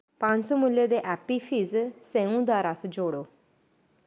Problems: none marked